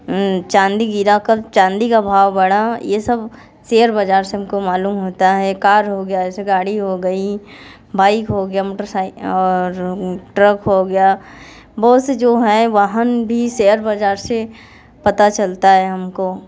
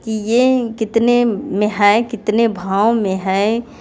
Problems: none marked